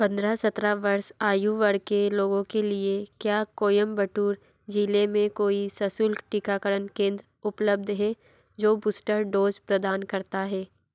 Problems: background sounds at intervals